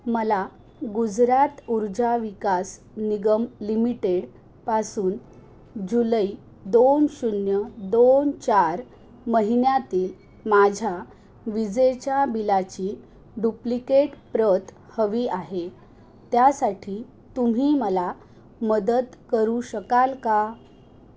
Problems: background sounds at intervals